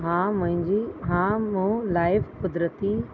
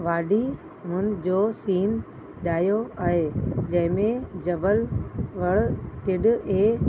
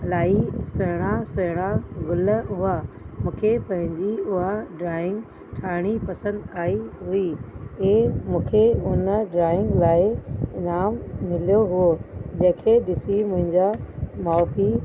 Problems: constant background noise